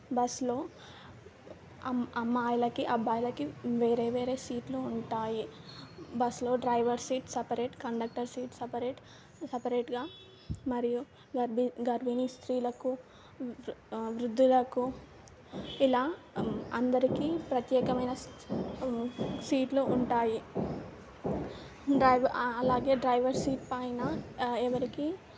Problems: none marked